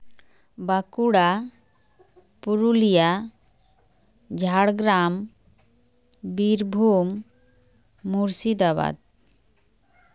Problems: none marked